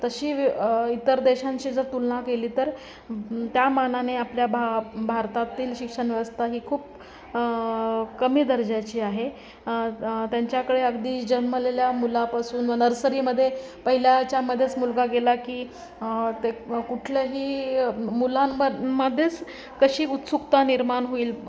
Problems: constant background noise, continuous background conversations